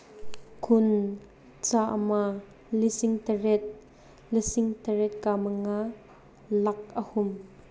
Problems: none marked